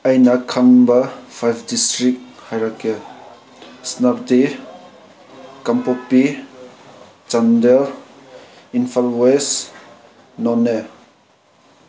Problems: none marked